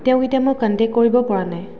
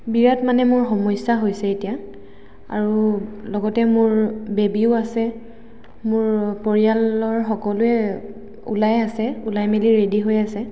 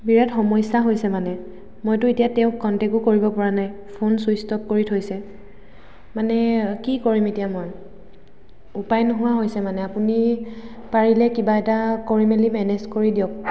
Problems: echo